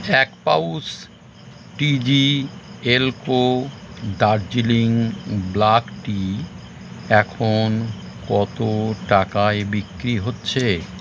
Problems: constant background noise